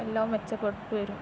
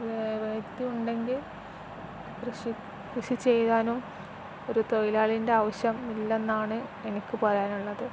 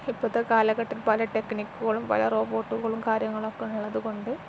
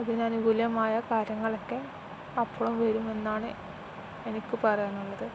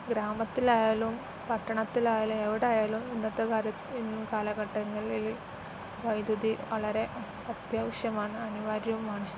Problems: constant background noise